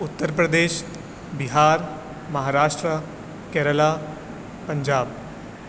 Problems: constant background noise, echo